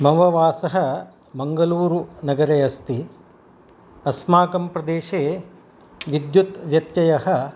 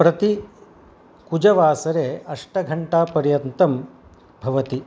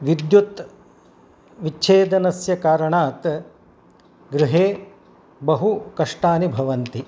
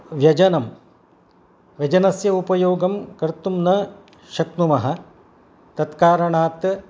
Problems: none marked